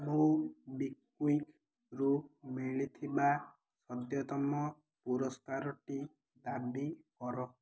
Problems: none marked